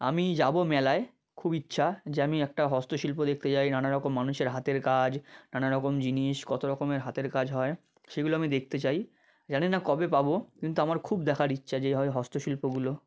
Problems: none marked